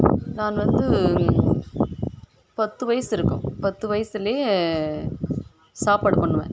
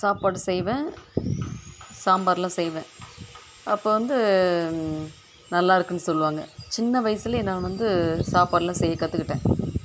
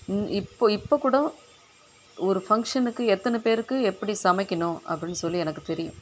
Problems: background sounds at intervals